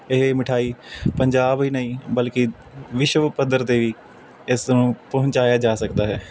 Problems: none marked